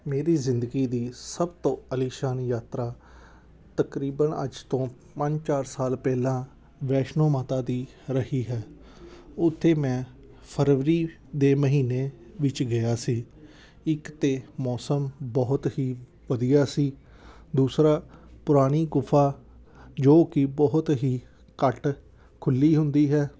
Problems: none marked